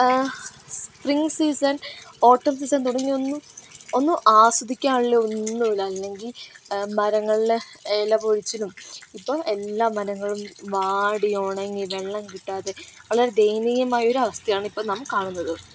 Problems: constant background noise